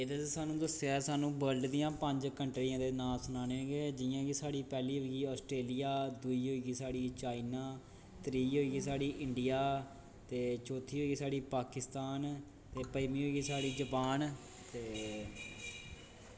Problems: constant background noise